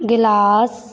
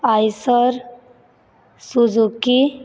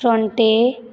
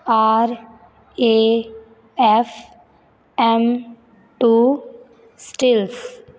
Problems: constant background noise